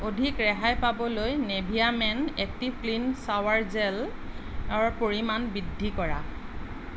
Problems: none marked